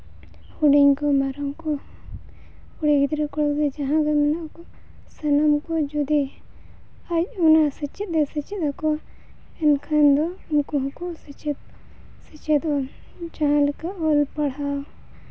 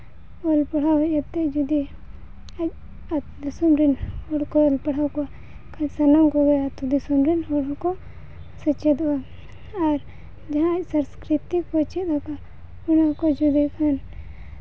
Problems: constant background noise